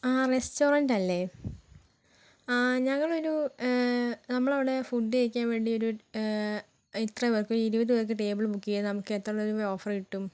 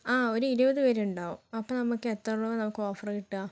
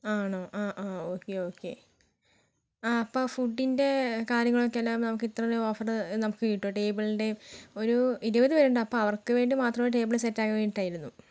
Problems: none marked